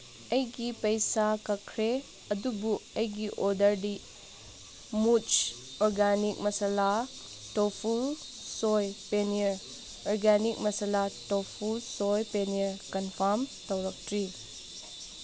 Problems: background sounds at intervals